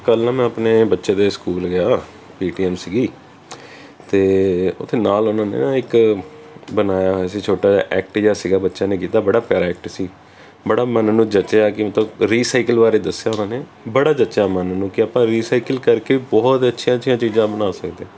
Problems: constant background noise